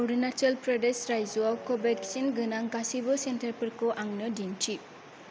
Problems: low volume